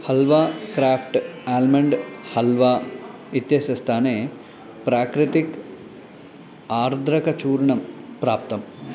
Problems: constant background noise